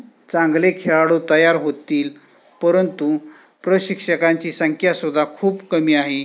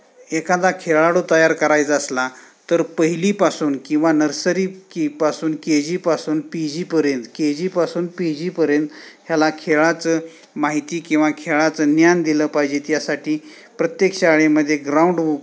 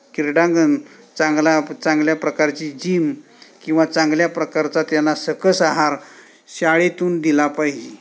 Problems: background sounds at intervals